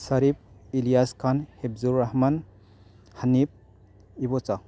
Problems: constant background noise